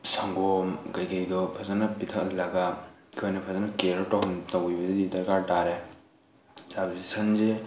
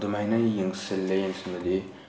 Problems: constant background noise, background conversations at intervals